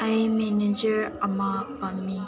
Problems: constant background noise